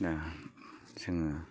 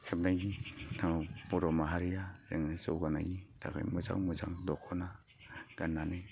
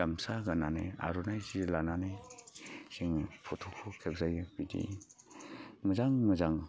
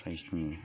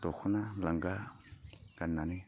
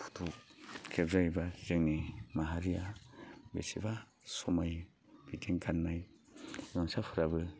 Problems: constant background noise